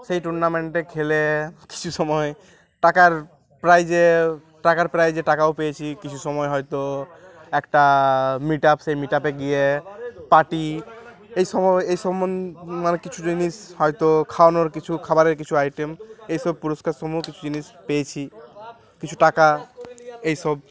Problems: continuous background conversations